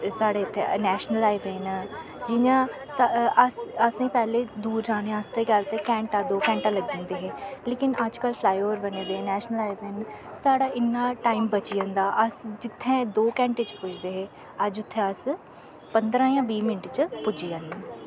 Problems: constant background noise